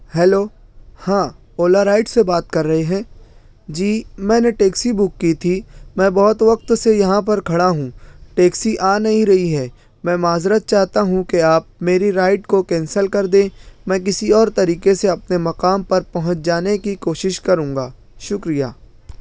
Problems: none marked